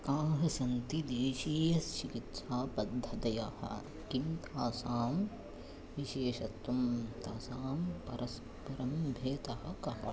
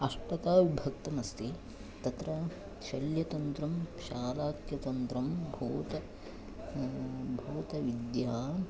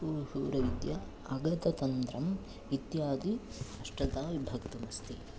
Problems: background sounds at intervals